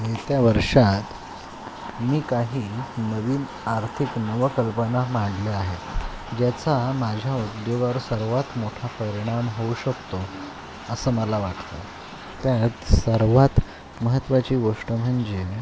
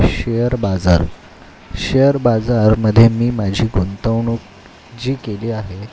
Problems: constant background noise